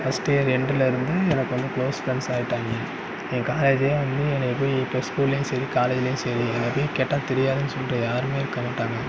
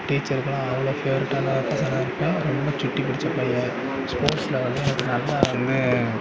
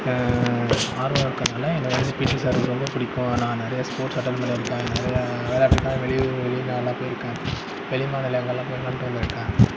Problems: constant background noise